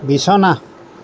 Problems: constant background noise